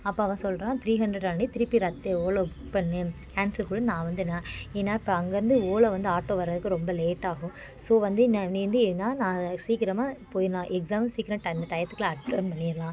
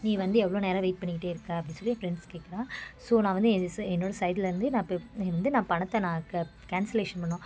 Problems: constant background noise, continuous background conversations